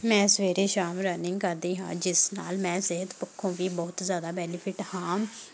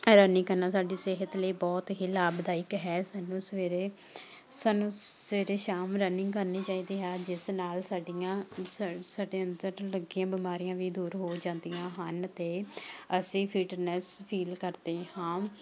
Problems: continuous background conversations